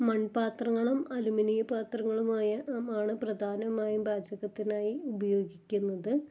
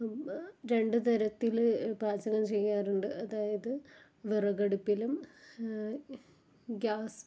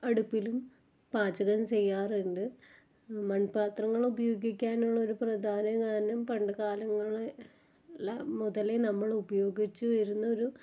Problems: low volume